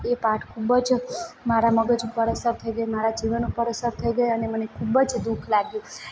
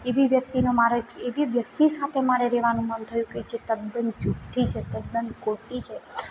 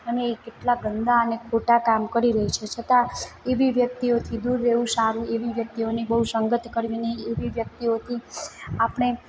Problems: background sounds at intervals, background conversations at intervals